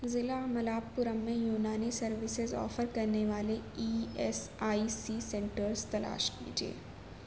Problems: constant background noise